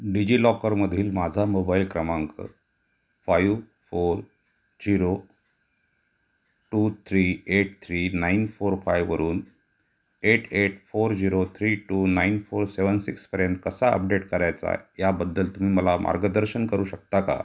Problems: constant background noise